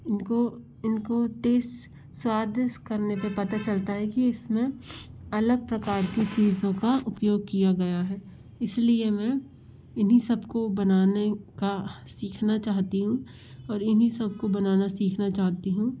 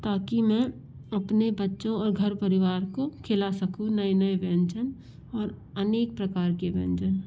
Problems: constant background noise